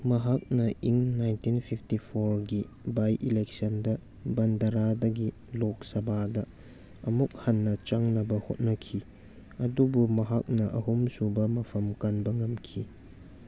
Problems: background sounds at intervals